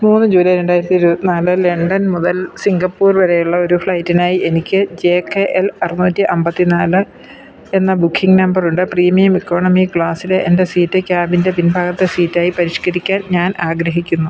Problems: none marked